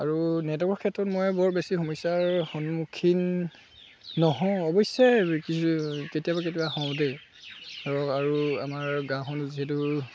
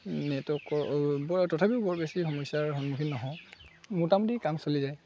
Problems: constant background noise, background conversations at intervals